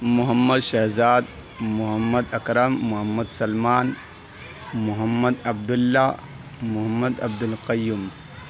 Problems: constant background noise